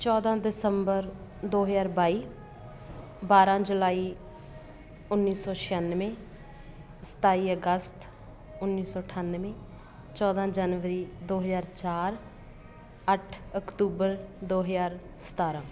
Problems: constant background noise